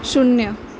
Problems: constant background noise